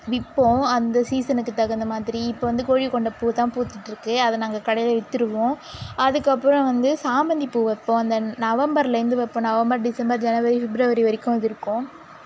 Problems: constant background noise